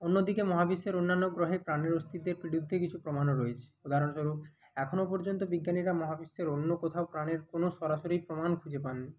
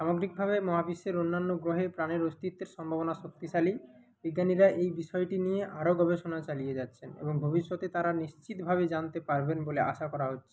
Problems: none marked